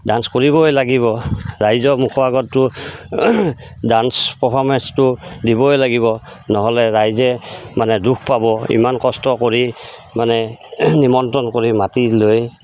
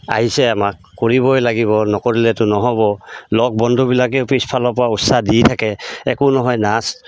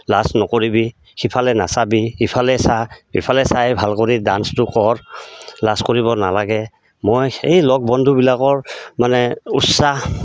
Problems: constant background noise